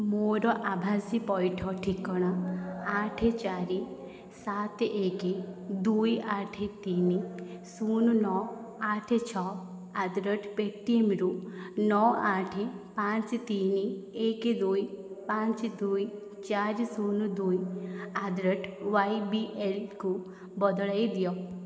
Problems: background conversations at intervals